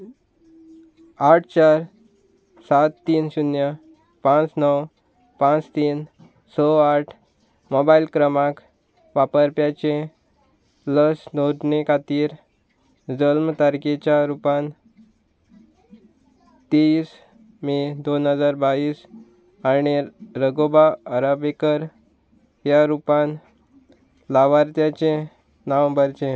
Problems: none marked